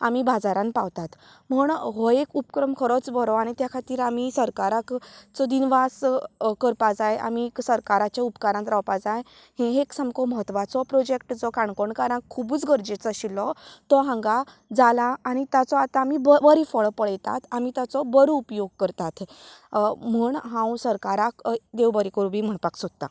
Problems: continuous background conversations